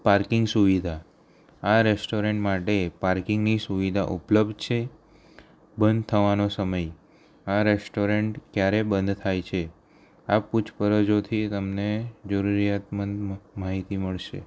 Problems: none marked